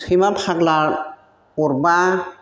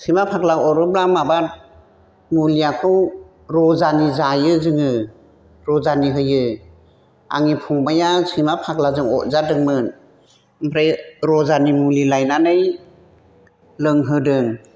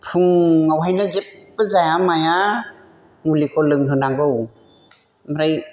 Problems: constant background noise